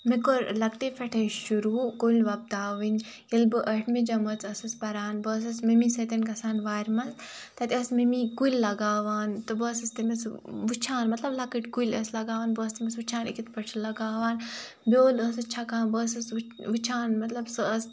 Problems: none marked